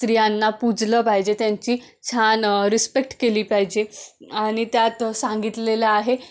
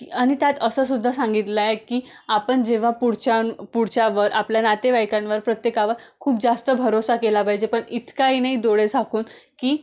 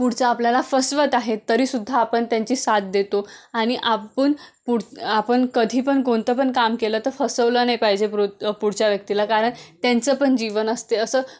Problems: none marked